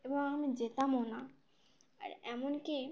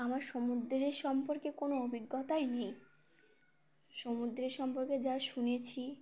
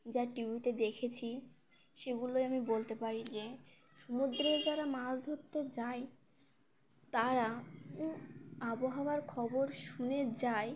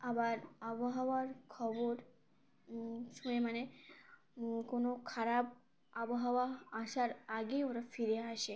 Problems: background sounds at intervals